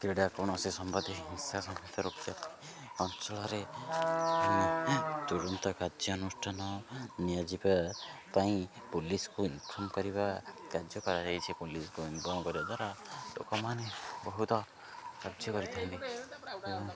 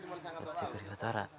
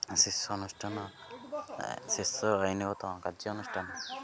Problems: none marked